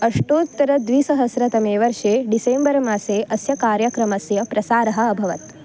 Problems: constant background noise